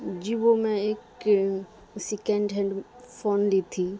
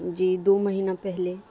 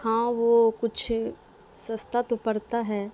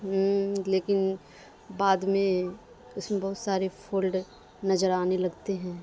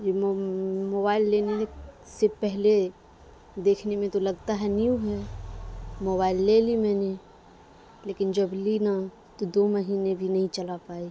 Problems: constant background noise, low volume